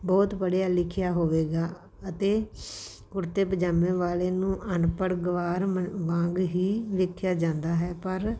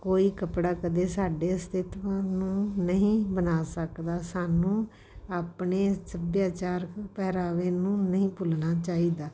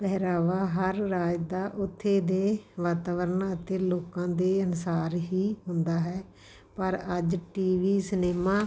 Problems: background sounds at intervals